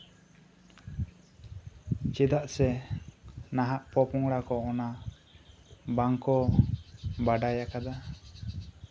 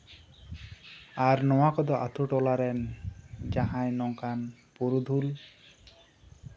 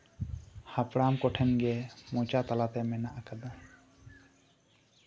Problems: none marked